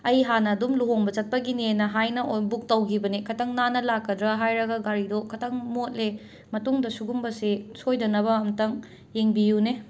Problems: none marked